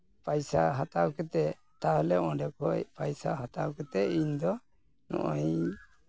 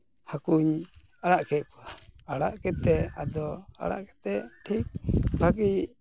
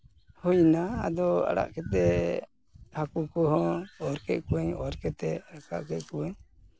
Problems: none marked